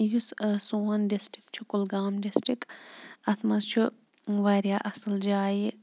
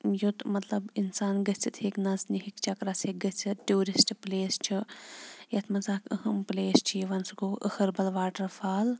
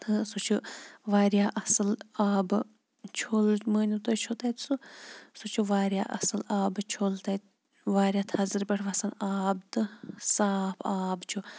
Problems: none marked